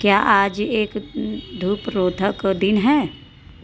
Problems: constant background noise